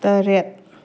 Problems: low volume